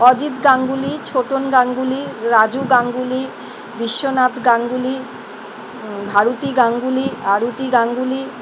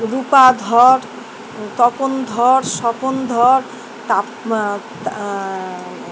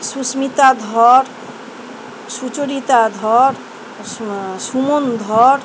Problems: none marked